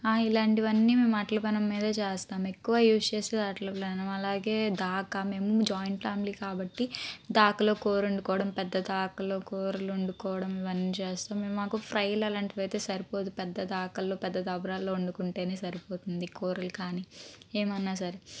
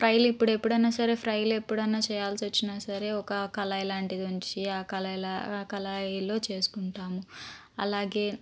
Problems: none marked